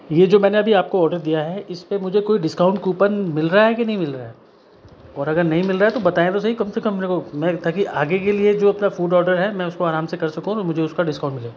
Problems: constant background noise